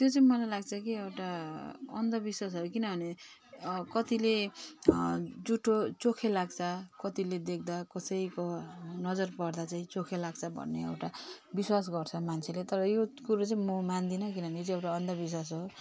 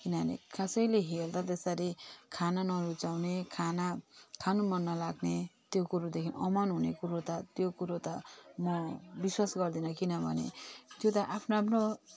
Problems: constant background noise